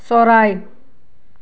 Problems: background conversations at intervals